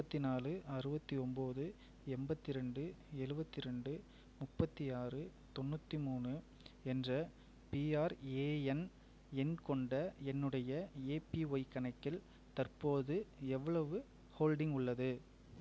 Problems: low volume